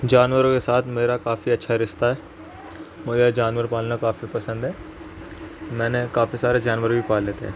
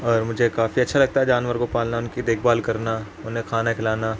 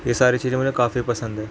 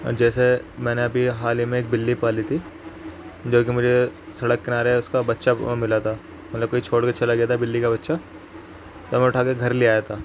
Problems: constant background noise